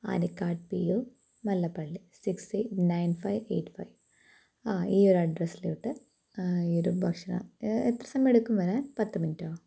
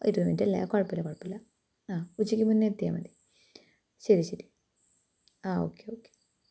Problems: low volume